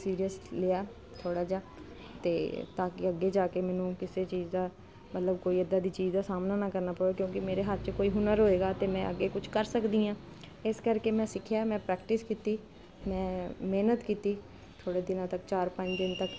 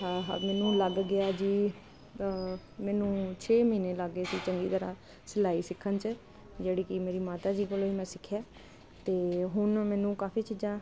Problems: none marked